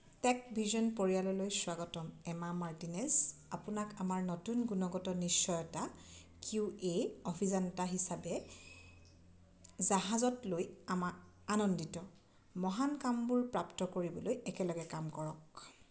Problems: none marked